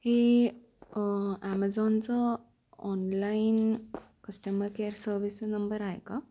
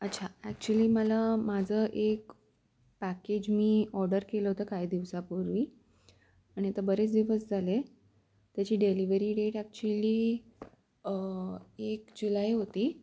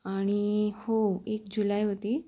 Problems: background sounds at intervals